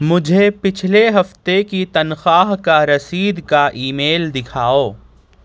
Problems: none marked